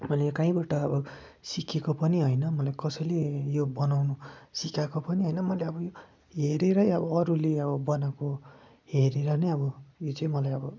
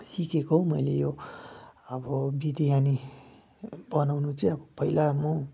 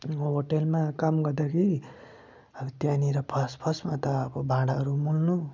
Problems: none marked